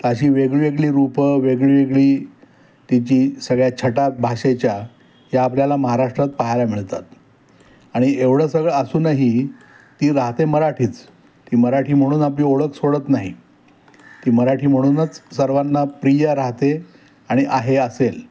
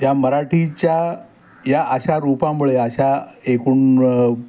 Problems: none marked